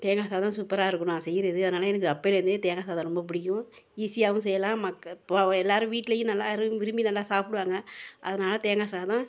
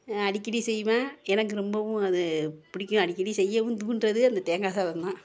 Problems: continuous background conversations